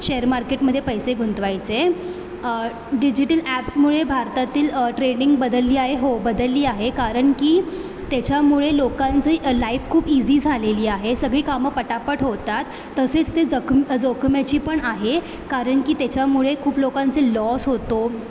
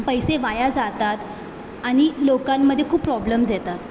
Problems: constant background noise